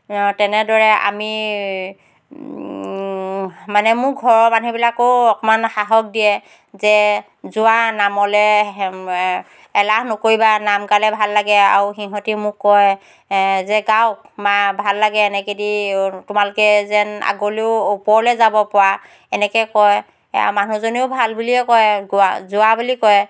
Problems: none marked